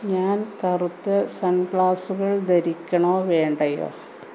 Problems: constant background noise